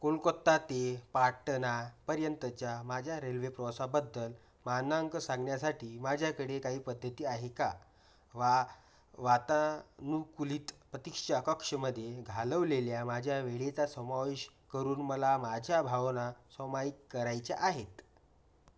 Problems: background sounds at intervals